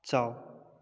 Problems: low volume